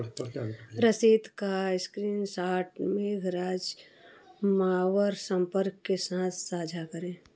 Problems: none marked